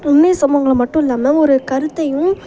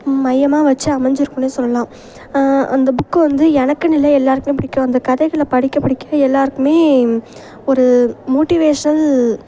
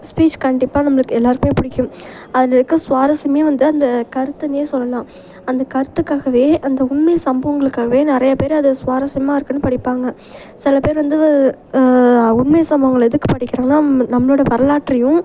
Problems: constant background noise